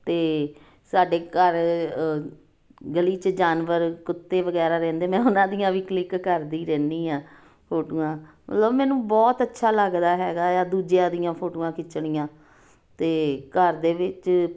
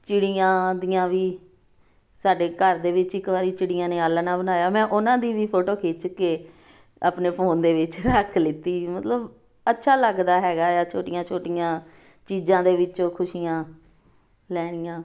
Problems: none marked